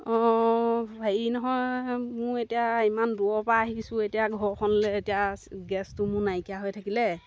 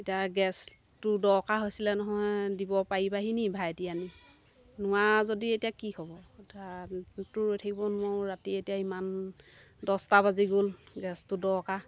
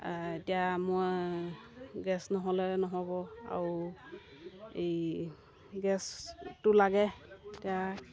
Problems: background sounds at intervals